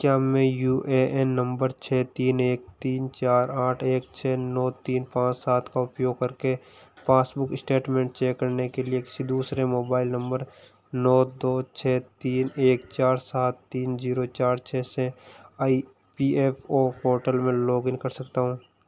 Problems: constant background noise